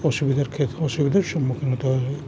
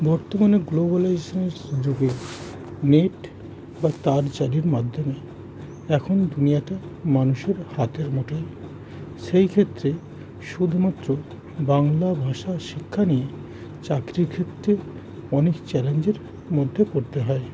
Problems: none marked